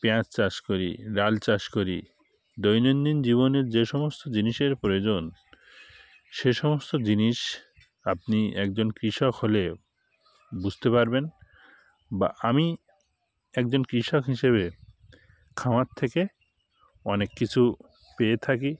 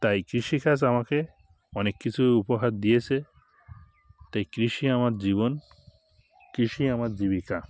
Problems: none marked